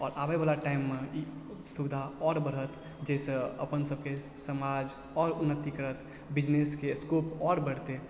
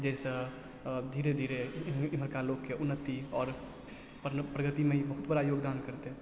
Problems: low volume